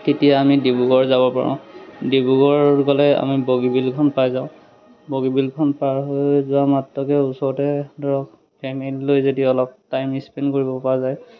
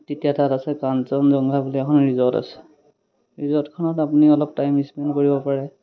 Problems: none marked